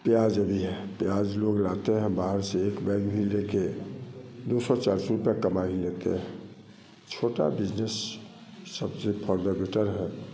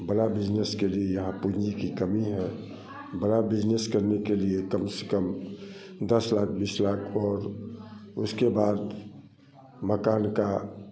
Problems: none marked